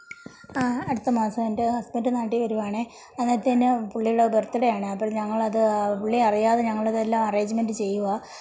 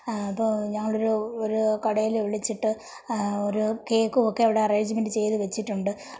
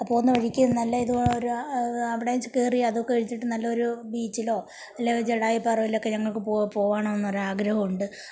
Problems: low volume